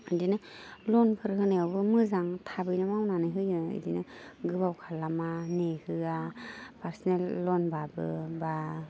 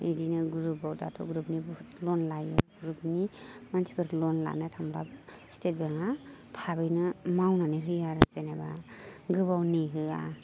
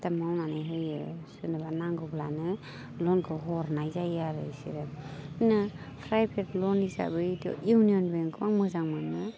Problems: none marked